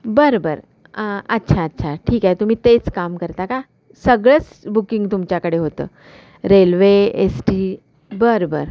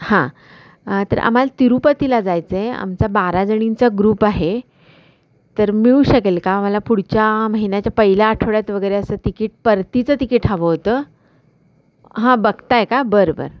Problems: constant background noise